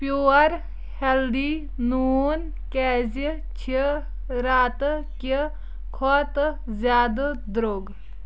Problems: none marked